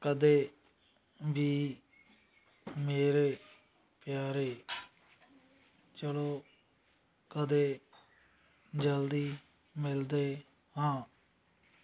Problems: background sounds at intervals